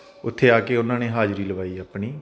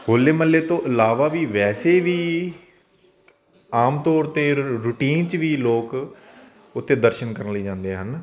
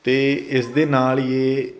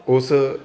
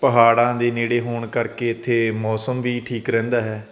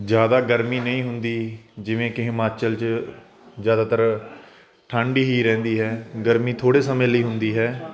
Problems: constant background noise